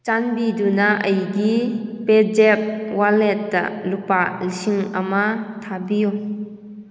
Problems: echo